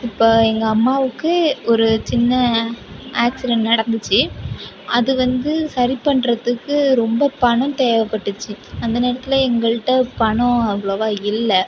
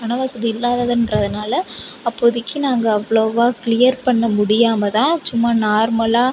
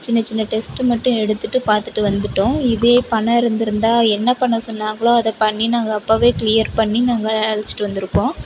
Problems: constant background noise